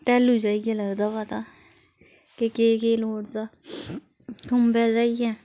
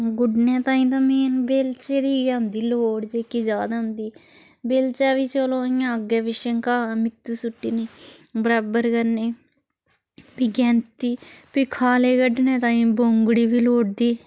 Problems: background sounds at intervals